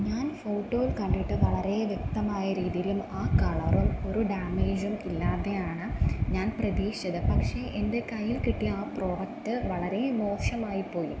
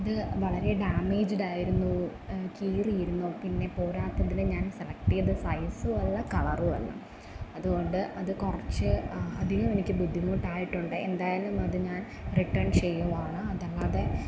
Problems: background sounds at intervals